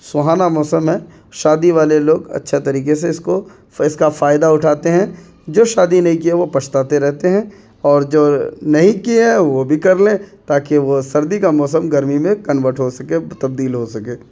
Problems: constant background noise